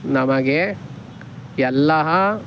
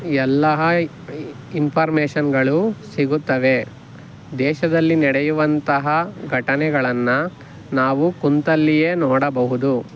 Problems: none marked